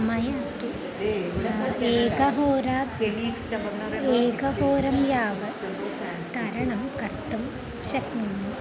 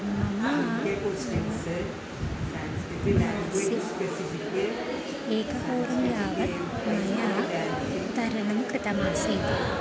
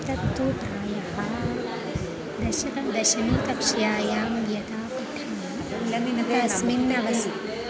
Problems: none marked